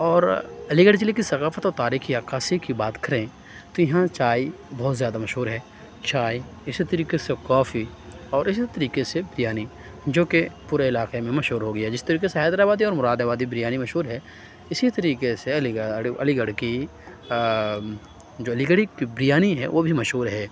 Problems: none marked